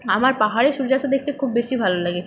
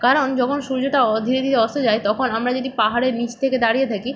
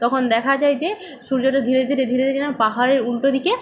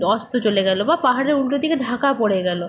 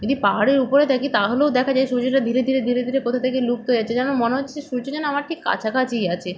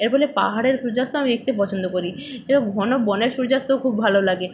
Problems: none marked